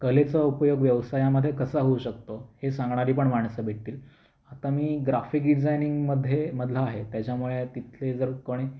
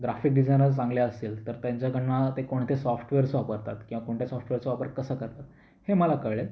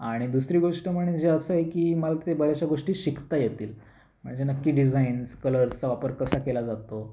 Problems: constant background noise